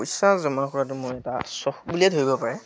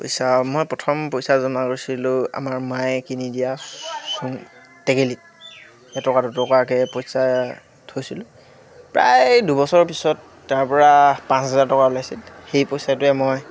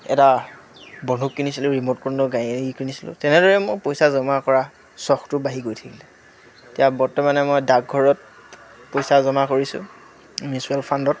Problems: constant background noise, background conversations at intervals